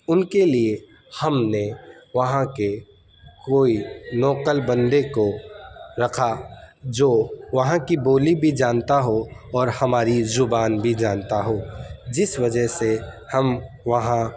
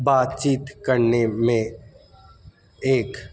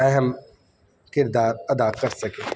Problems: constant background noise